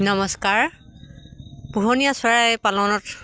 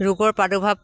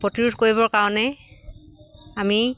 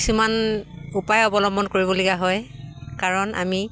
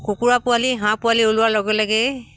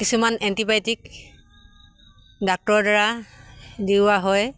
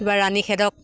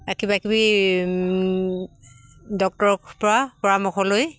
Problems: none marked